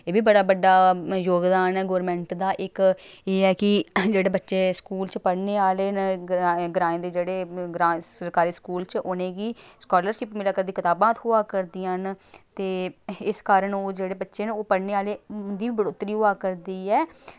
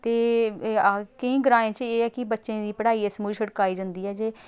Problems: none marked